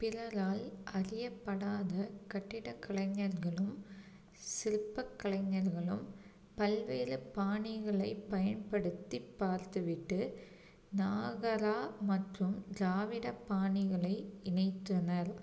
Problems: low volume